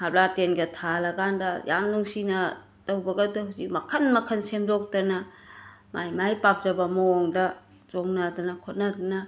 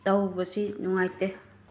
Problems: constant background noise